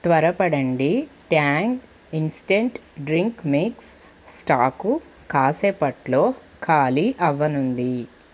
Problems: constant background noise